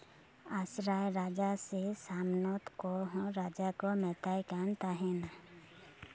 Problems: none marked